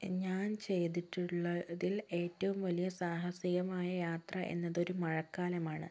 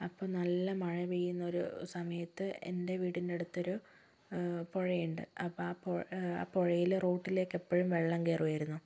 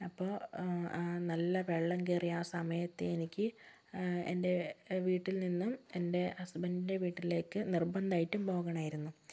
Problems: none marked